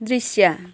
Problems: background sounds at intervals